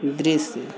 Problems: none marked